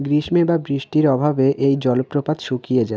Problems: constant background noise